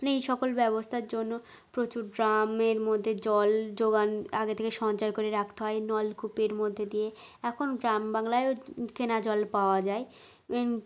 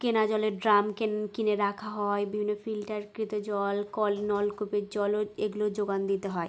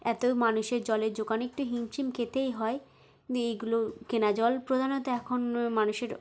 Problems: background sounds at intervals